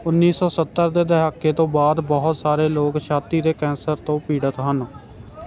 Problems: none marked